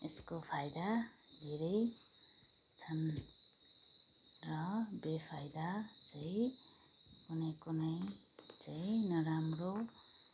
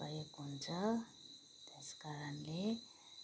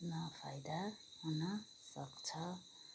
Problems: background sounds at intervals